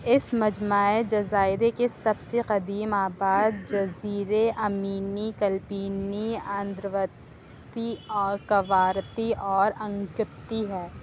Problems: constant background noise